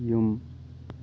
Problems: constant background noise